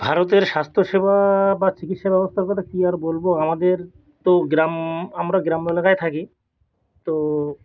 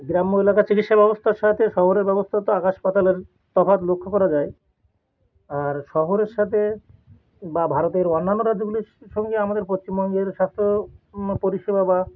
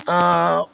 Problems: none marked